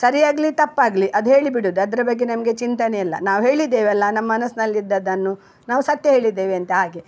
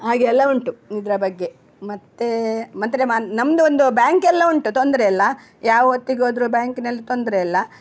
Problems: none marked